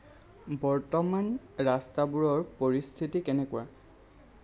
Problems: none marked